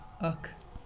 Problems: constant background noise